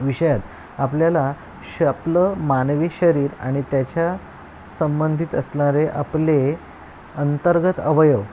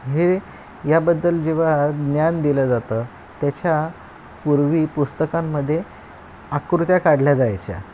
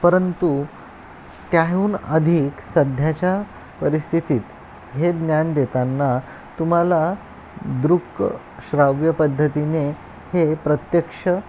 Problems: constant background noise, background conversations at intervals